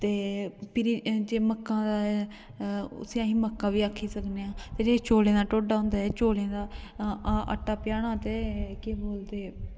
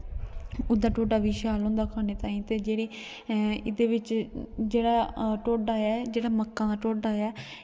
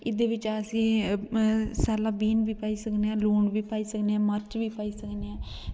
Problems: background sounds at intervals, echo